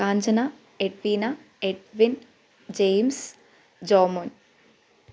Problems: none marked